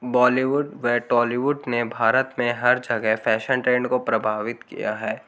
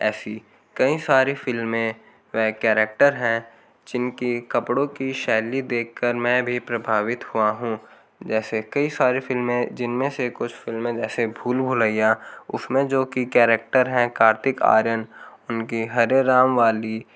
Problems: background sounds at intervals